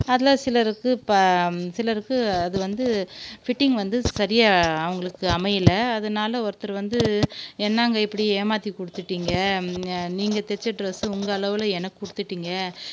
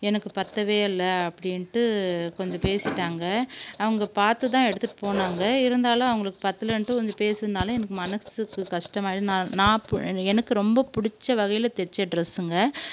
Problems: constant background noise